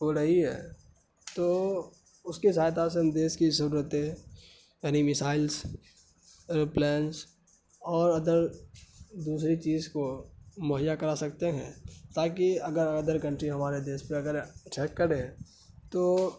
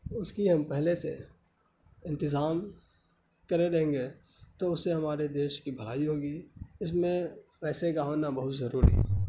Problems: constant background noise